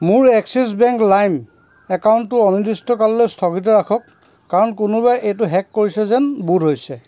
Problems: constant background noise